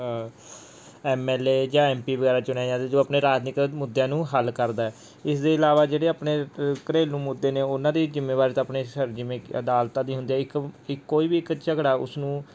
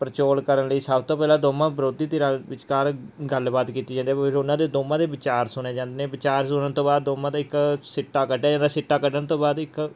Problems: background sounds at intervals